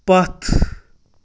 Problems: constant background noise